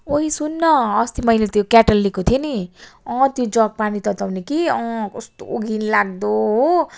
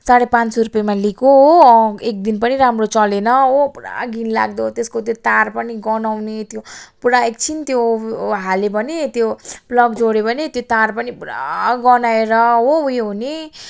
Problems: none marked